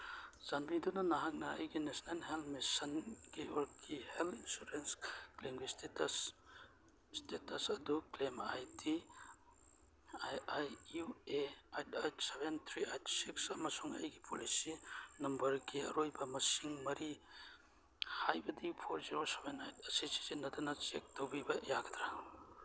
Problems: background sounds at intervals